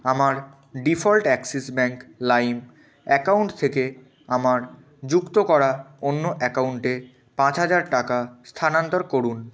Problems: constant background noise